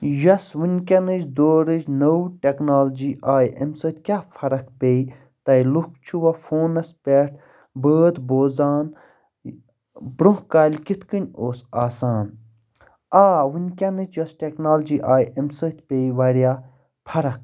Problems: constant background noise